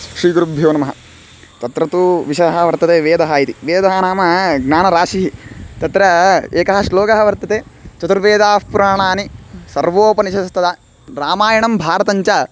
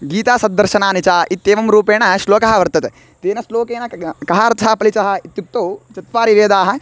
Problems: constant background noise